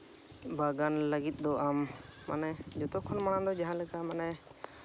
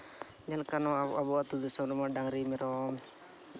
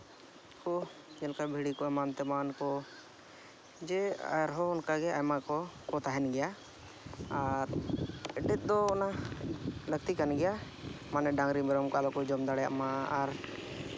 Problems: background sounds at intervals, background conversations at intervals